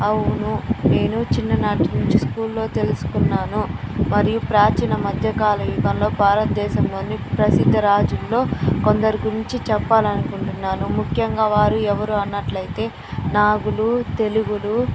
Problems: constant background noise